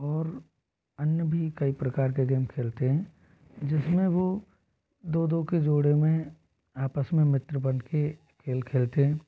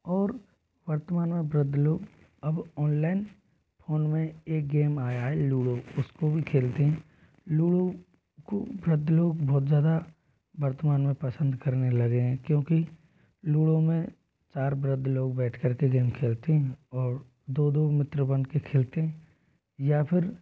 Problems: low volume